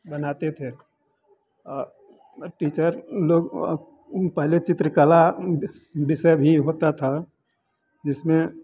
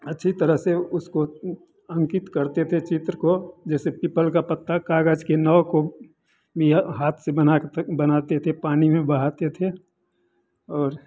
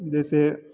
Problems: none marked